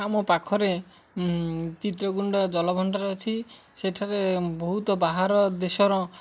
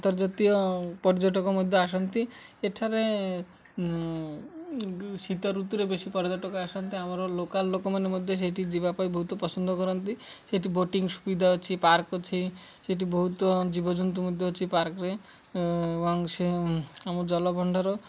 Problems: none marked